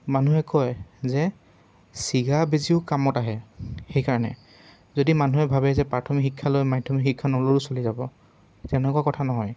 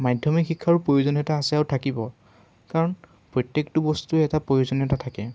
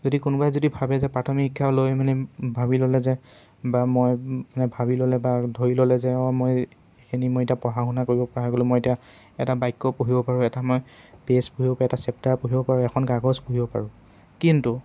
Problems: constant background noise